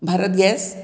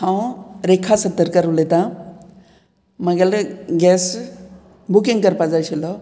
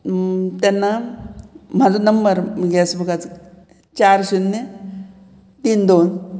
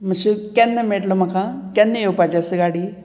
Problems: background conversations at intervals